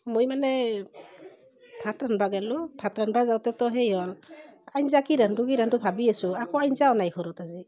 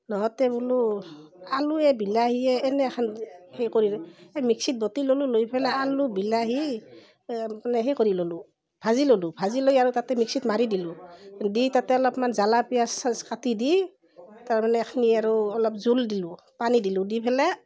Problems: continuous background conversations